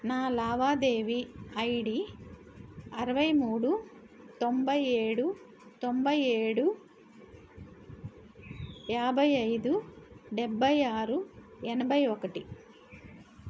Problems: background sounds at intervals